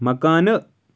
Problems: none marked